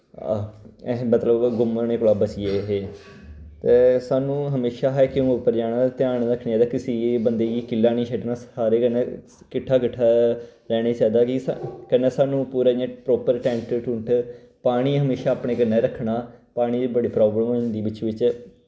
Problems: none marked